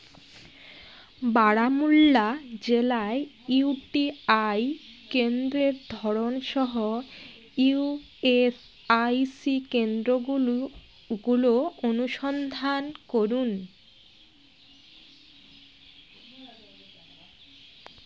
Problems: constant background noise, background conversations at intervals